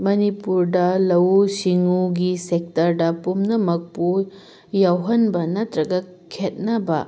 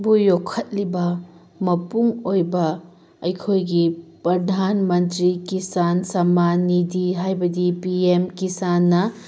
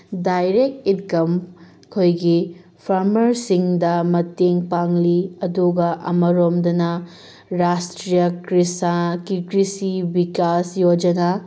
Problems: background sounds at intervals